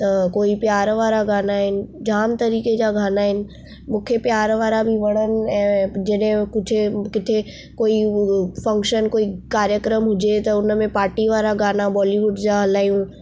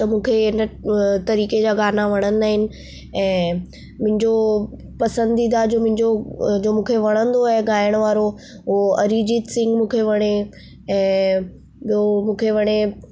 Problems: none marked